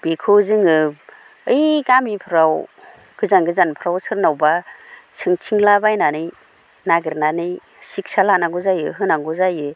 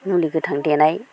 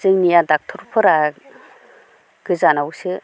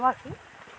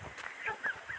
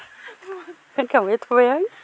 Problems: none marked